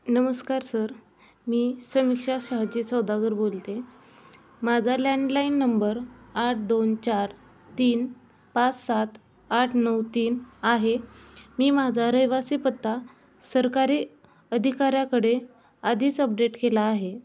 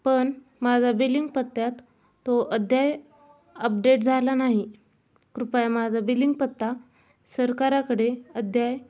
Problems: constant background noise, background conversations at intervals